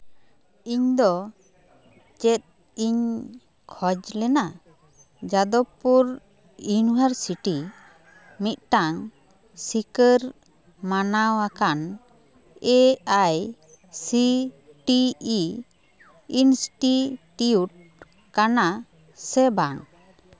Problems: background sounds at intervals, continuous background conversations